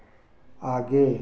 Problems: none marked